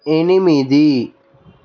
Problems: background sounds at intervals